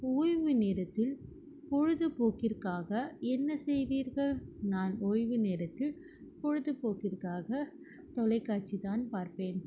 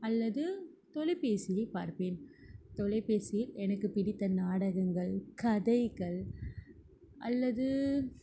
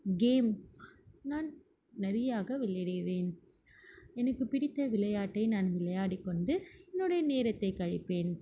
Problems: background sounds at intervals